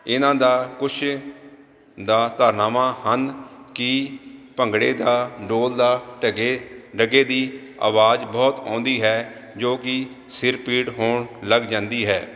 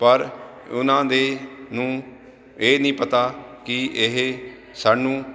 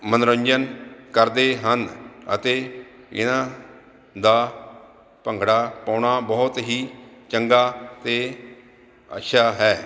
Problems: none marked